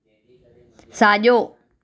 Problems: continuous background conversations